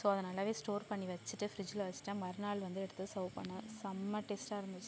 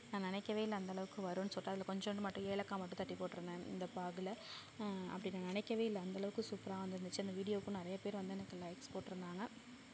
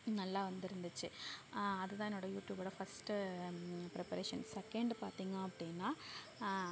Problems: low volume